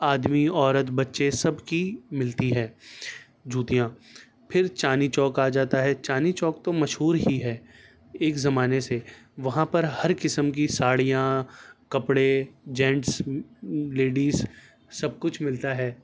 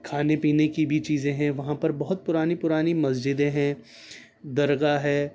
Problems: none marked